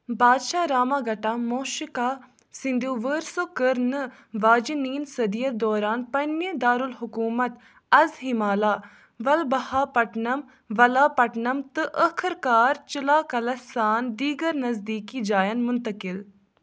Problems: background sounds at intervals